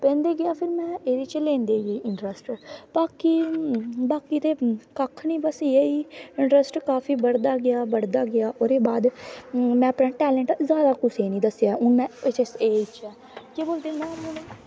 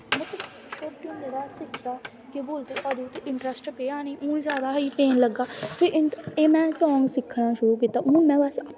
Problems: constant background noise